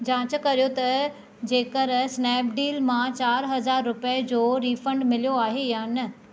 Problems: none marked